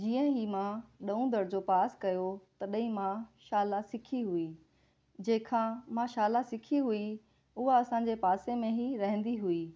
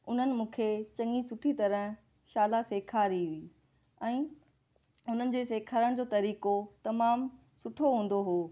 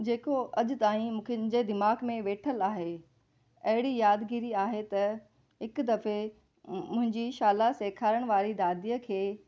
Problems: none marked